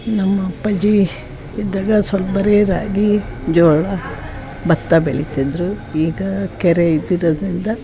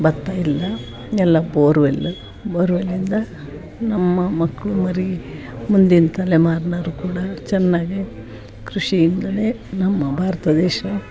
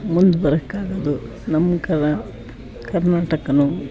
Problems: background sounds at intervals, background conversations at intervals